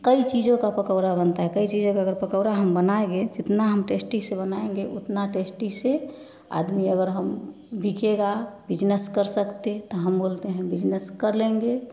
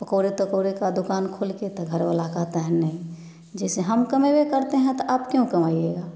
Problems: background conversations at intervals